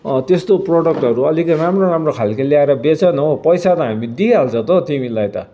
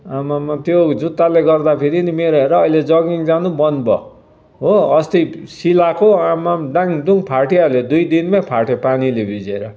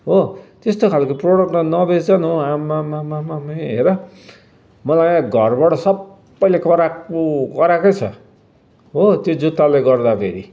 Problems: background sounds at intervals